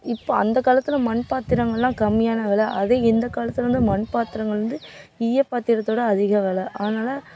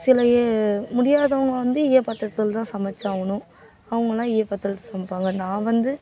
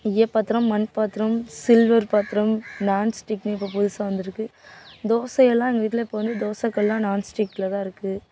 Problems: background sounds at intervals